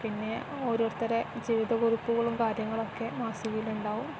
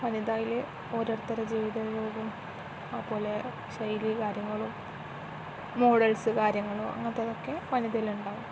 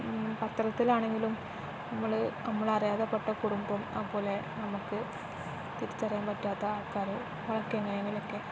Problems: none marked